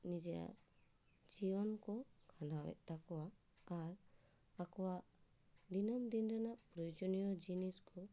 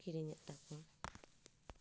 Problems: low volume